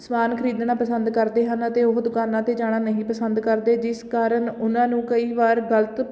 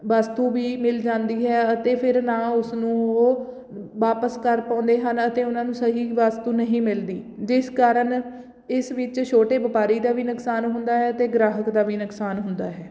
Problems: none marked